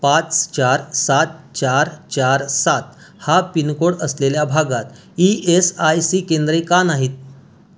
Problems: none marked